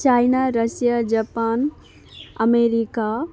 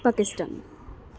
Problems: none marked